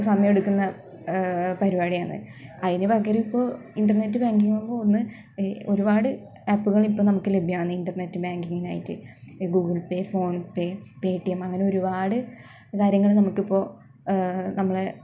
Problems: background sounds at intervals